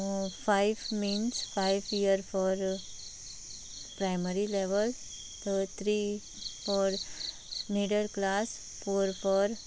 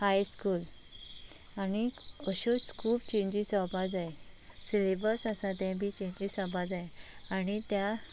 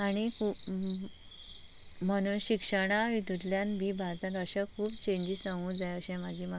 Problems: constant background noise